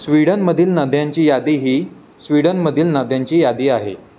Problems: constant background noise